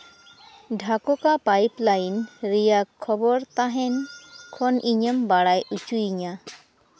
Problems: constant background noise